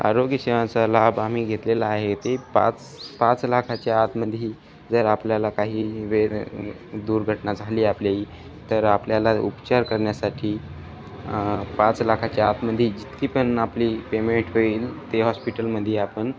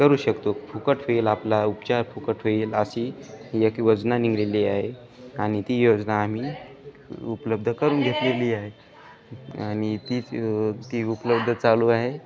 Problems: constant background noise, background conversations at intervals